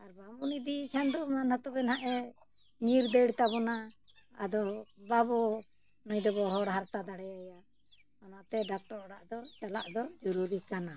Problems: none marked